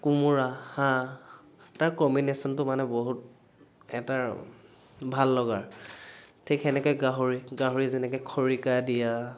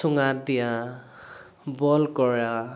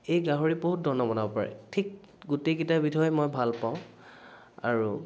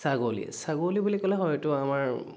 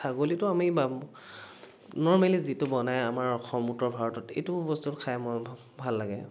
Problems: constant background noise